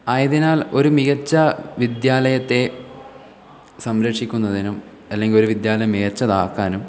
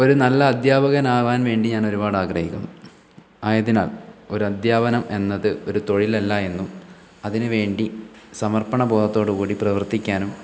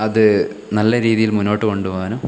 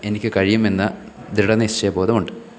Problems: background sounds at intervals